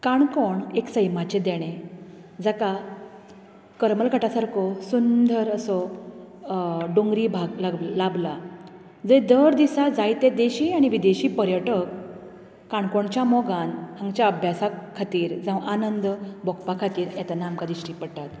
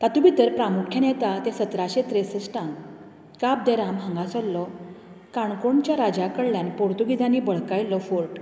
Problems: background conversations at intervals